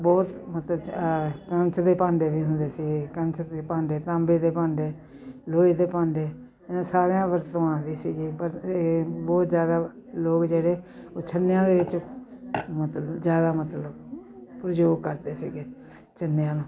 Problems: none marked